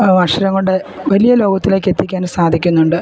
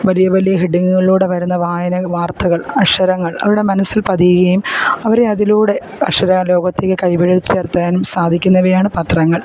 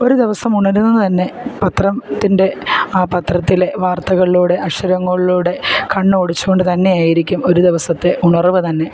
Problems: background sounds at intervals